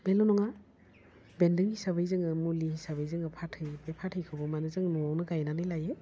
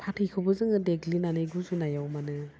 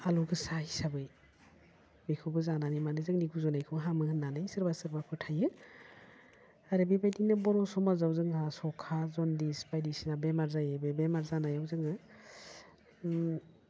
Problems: constant background noise